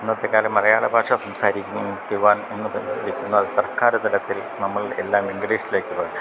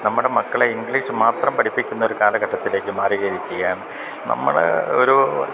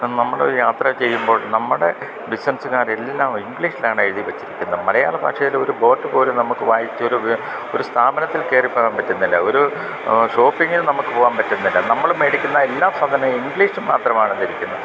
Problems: constant background noise, low volume